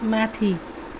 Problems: background sounds at intervals